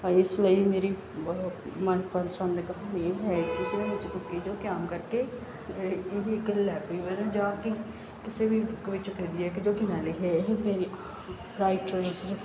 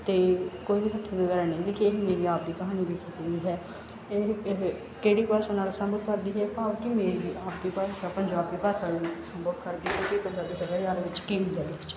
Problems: background sounds at intervals